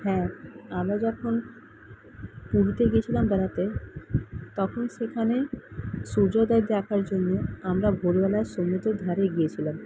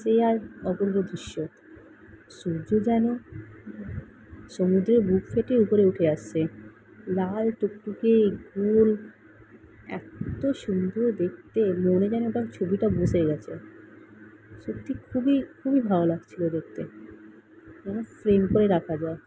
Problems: constant background noise